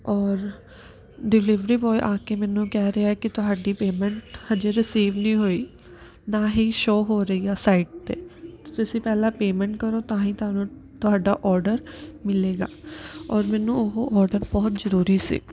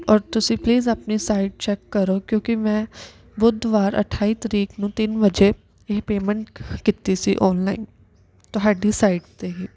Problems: none marked